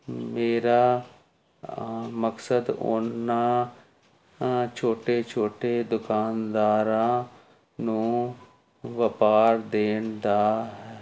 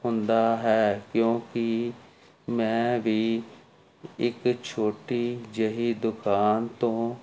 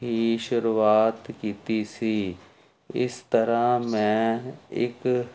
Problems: constant background noise